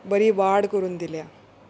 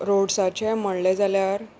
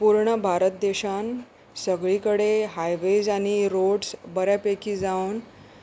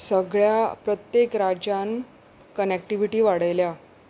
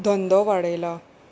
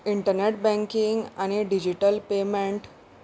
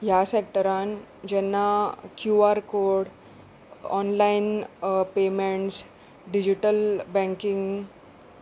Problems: constant background noise